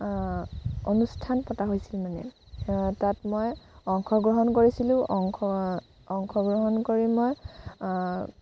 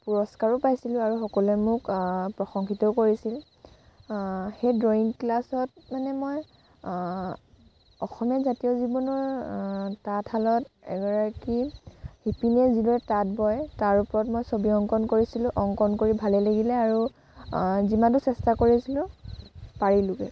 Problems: constant background noise